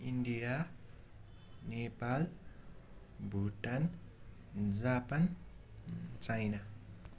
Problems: none marked